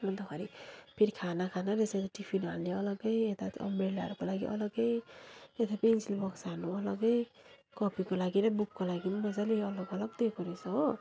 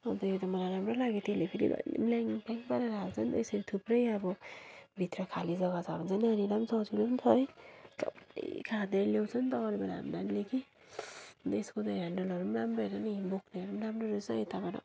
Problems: low volume